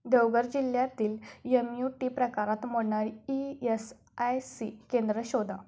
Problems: background sounds at intervals